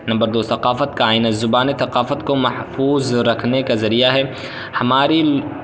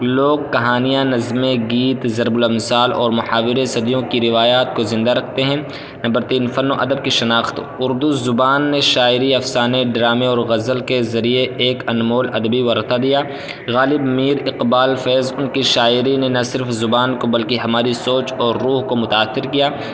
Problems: constant background noise